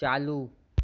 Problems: none marked